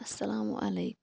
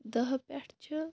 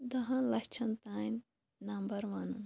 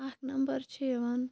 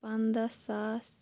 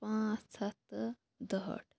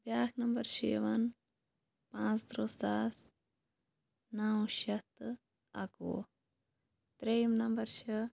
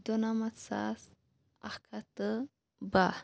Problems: background sounds at intervals